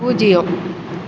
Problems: constant background noise